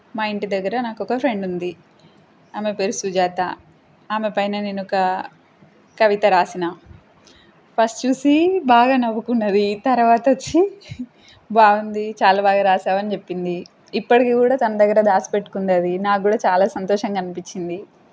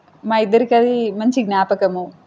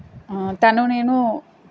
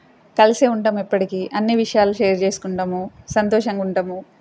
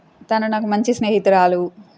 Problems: constant background noise